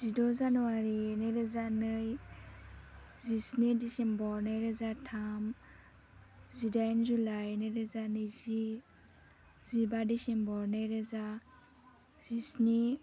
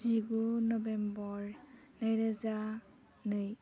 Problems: low volume